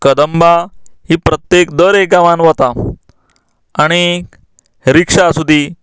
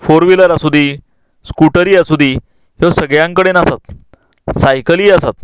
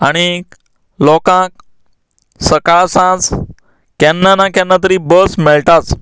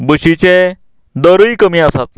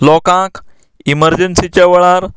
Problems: none marked